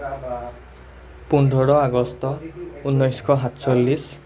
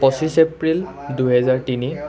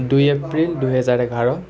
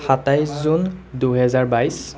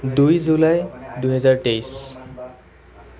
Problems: continuous background conversations